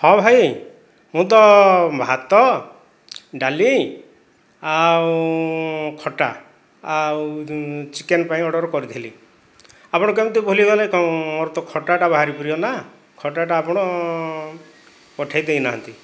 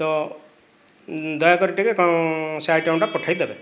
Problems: background sounds at intervals